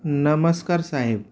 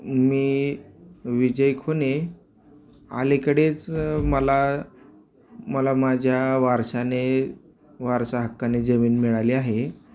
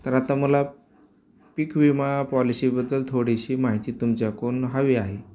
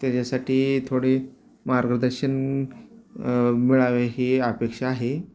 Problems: none marked